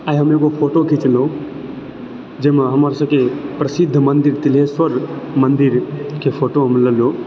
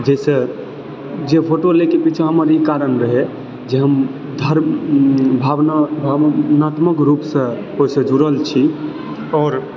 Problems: background sounds at intervals, background conversations at intervals